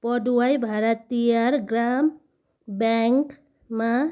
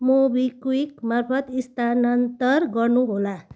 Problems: background sounds at intervals